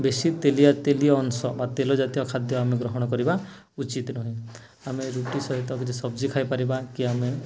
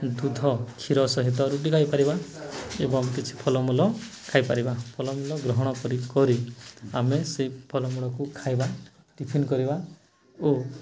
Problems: none marked